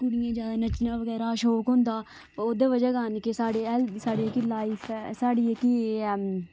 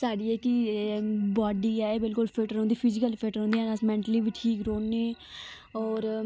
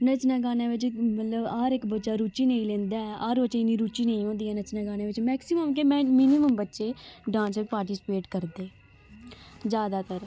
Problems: none marked